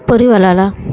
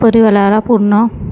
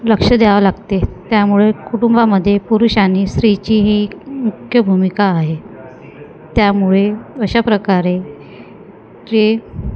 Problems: constant background noise, continuous background conversations